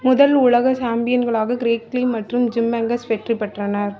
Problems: background sounds at intervals